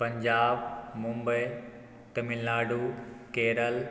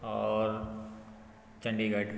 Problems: background sounds at intervals